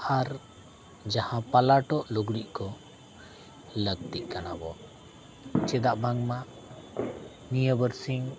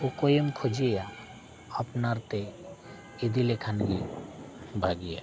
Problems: background sounds at intervals